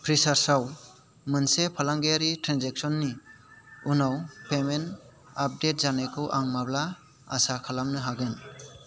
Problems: constant background noise